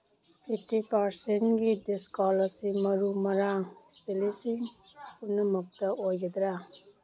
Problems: background sounds at intervals